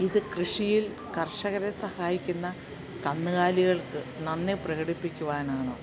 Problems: low volume